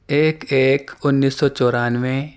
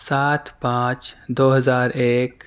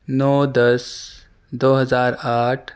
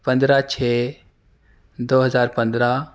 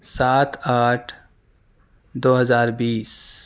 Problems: none marked